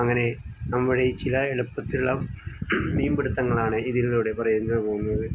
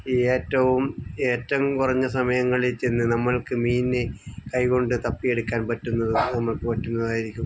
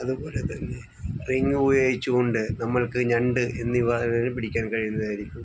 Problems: background sounds at intervals